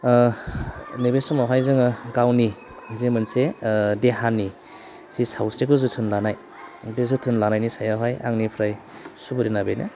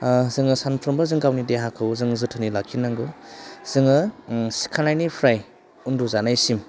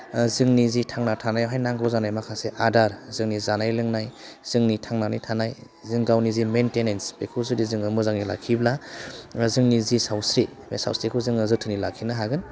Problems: constant background noise